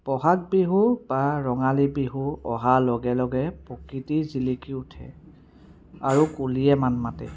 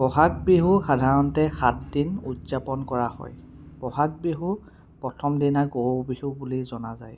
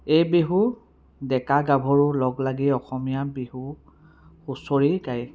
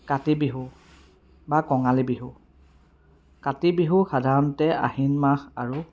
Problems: background sounds at intervals, background conversations at intervals